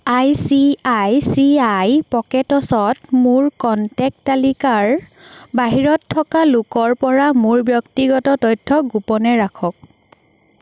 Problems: constant background noise